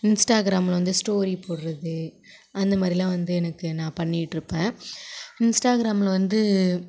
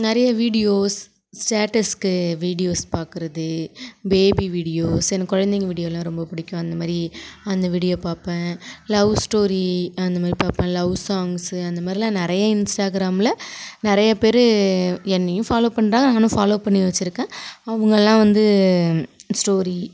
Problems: none marked